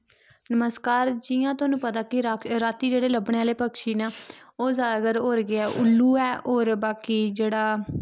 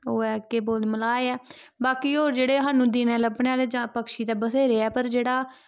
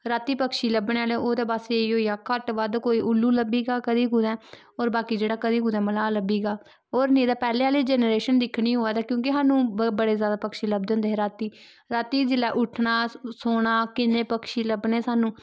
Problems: none marked